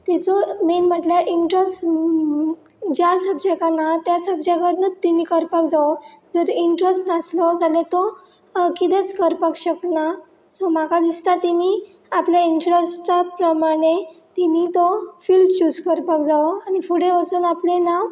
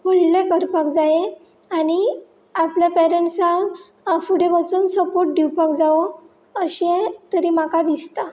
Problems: none marked